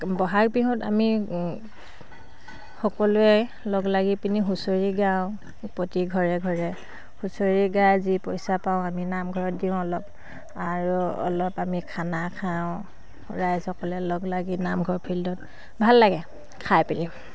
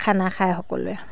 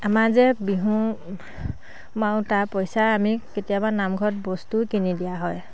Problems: background sounds at intervals